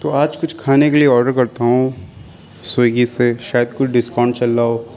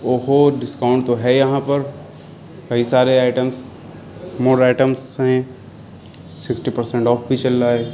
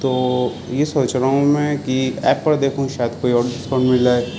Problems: constant background noise